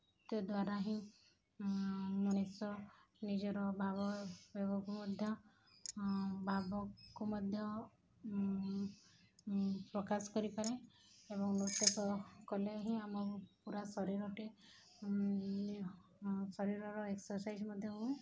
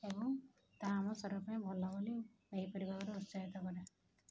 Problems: background sounds at intervals